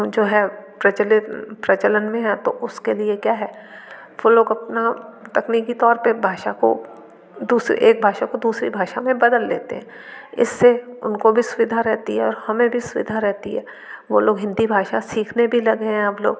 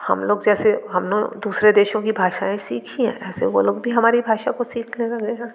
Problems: constant background noise